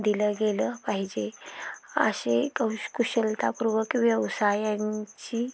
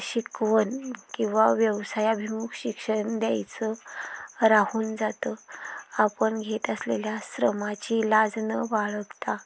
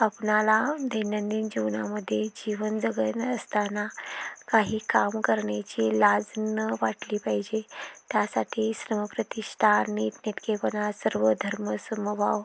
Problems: background sounds at intervals